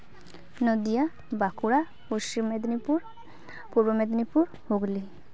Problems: none marked